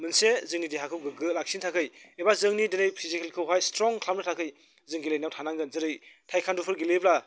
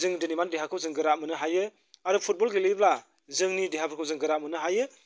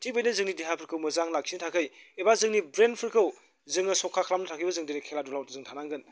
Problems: none marked